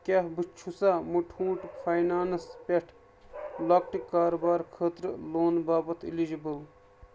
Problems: background sounds at intervals